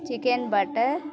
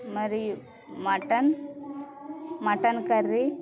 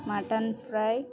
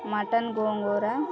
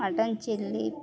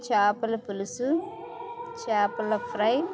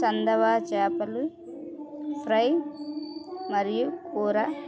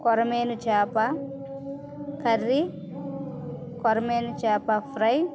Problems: constant background noise